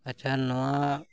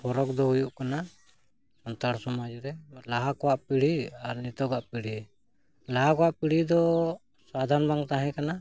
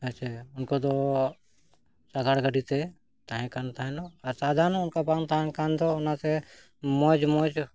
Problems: none marked